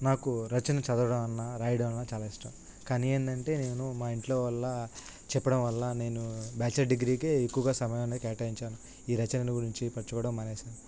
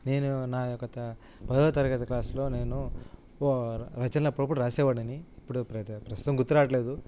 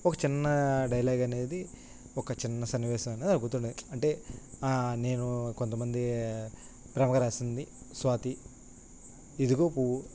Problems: constant background noise